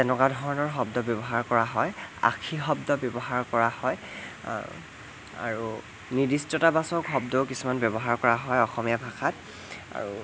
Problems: constant background noise